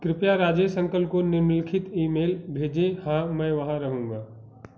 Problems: background sounds at intervals